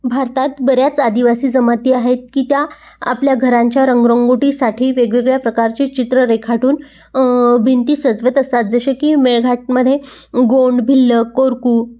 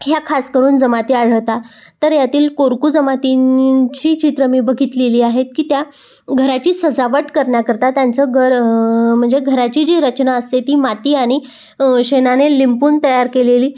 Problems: background sounds at intervals